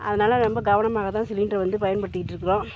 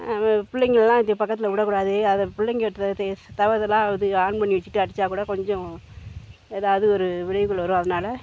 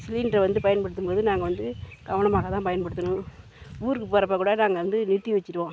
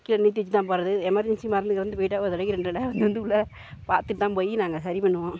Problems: background sounds at intervals